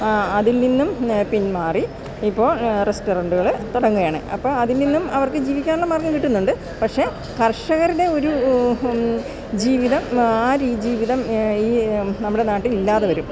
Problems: background sounds at intervals